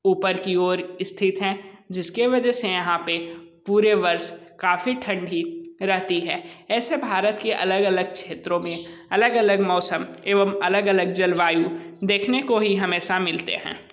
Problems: none marked